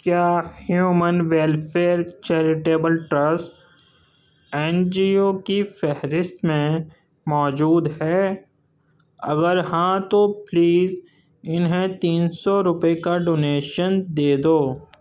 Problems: none marked